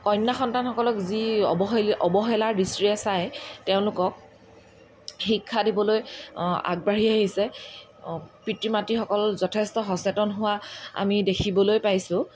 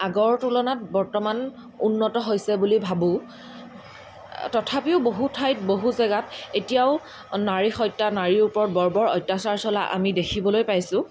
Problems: background sounds at intervals